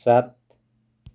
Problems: none marked